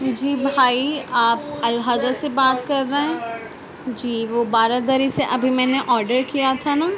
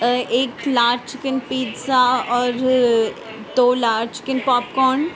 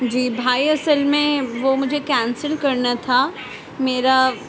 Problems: constant background noise